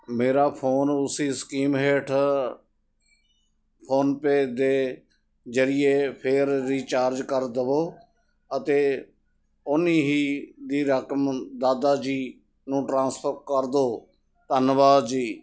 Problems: none marked